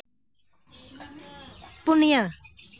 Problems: constant background noise